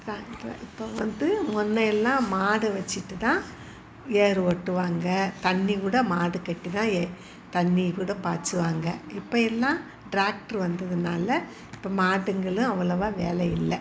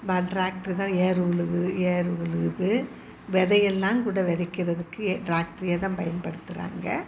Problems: constant background noise